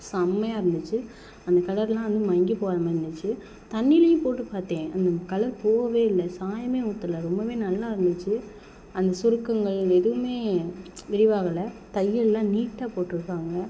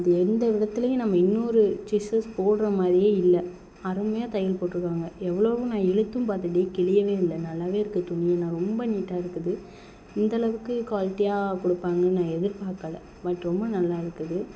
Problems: none marked